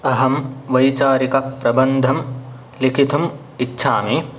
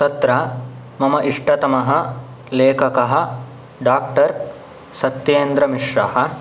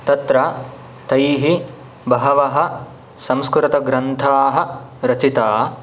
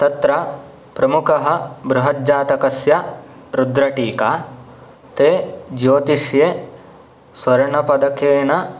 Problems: none marked